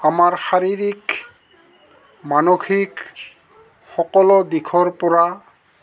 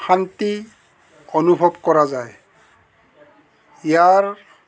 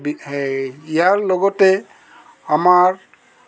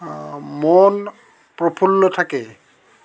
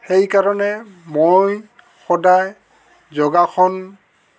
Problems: constant background noise, background conversations at intervals